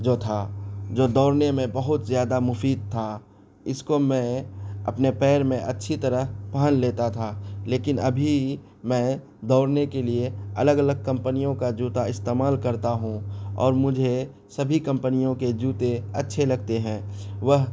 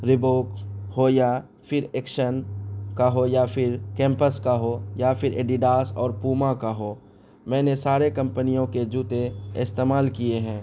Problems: none marked